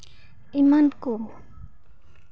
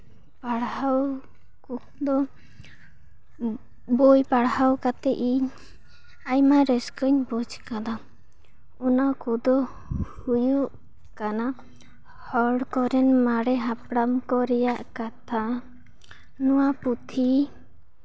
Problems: background sounds at intervals